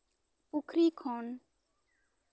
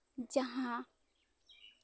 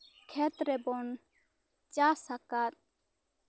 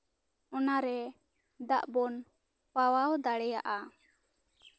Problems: background sounds at intervals, background conversations at intervals